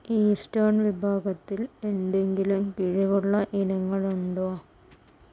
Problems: none marked